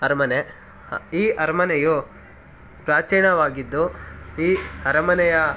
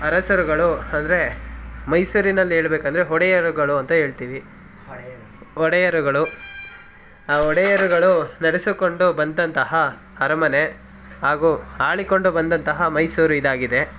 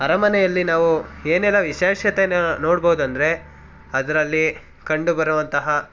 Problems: background sounds at intervals, background conversations at intervals